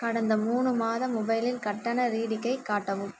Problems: low volume